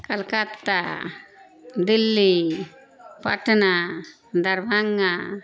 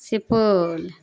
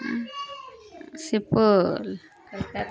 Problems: constant background noise